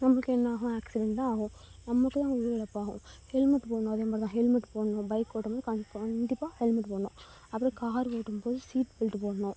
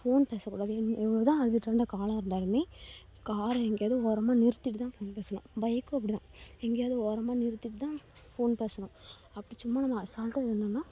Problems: low volume